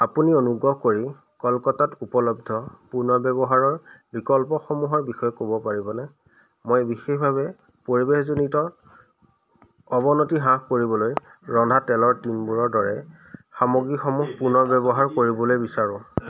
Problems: constant background noise